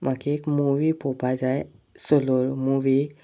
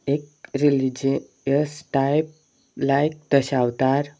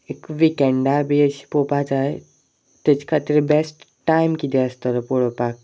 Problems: none marked